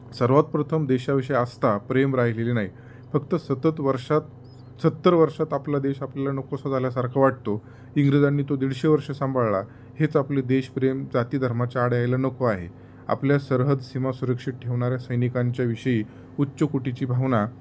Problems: constant background noise, background conversations at intervals